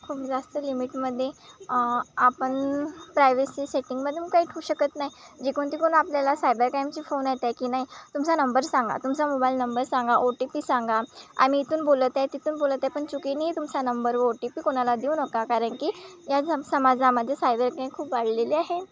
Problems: constant background noise